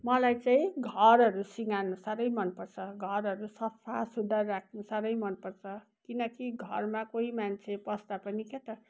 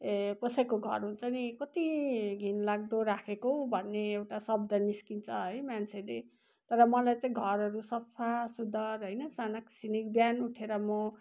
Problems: background sounds at intervals